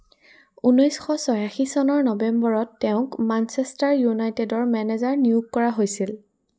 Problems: none marked